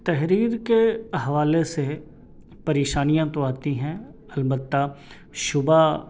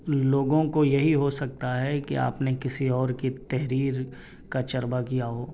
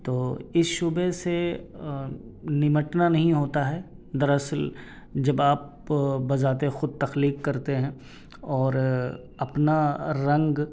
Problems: none marked